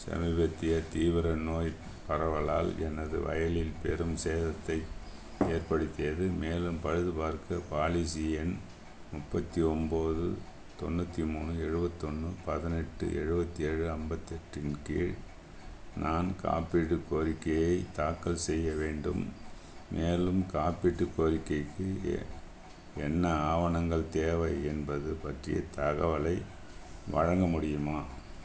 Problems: constant background noise